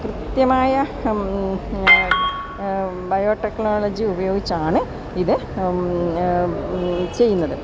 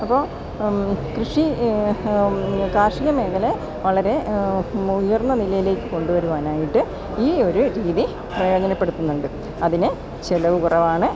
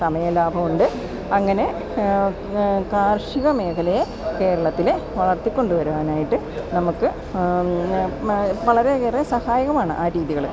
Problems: constant background noise